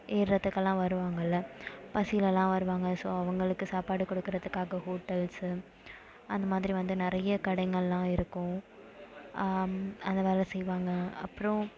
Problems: background sounds at intervals